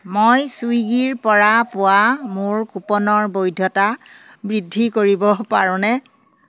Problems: none marked